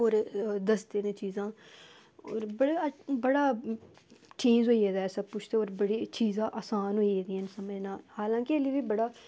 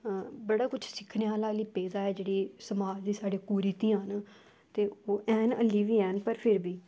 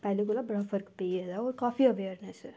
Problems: background sounds at intervals